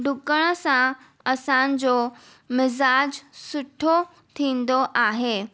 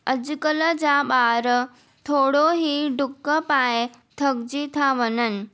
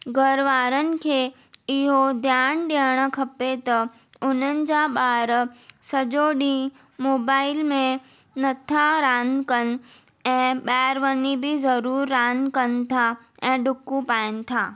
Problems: none marked